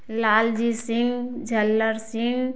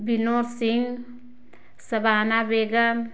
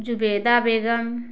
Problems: none marked